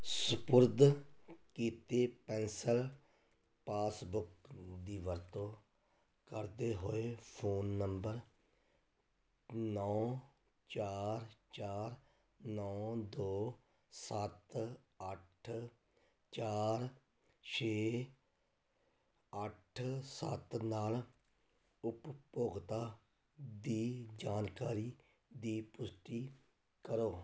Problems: none marked